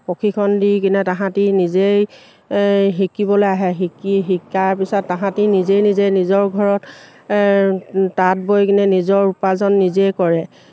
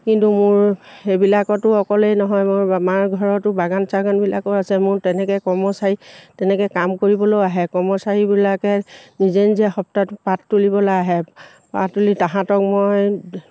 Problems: none marked